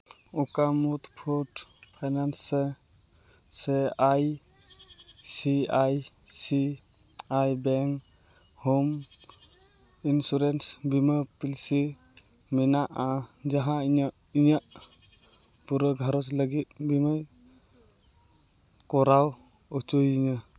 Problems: none marked